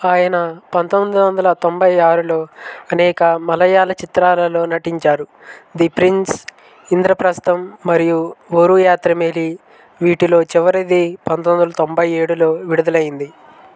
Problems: constant background noise